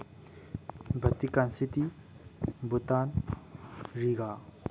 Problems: low volume